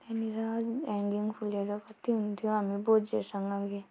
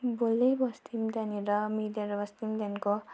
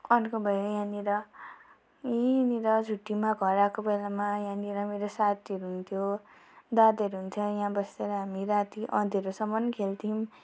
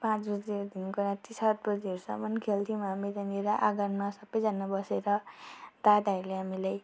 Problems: constant background noise